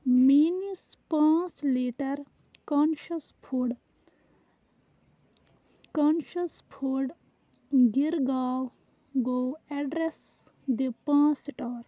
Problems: background sounds at intervals, background conversations at intervals